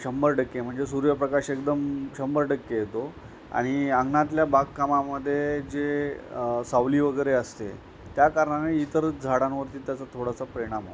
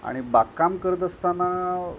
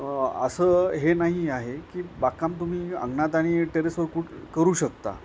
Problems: none marked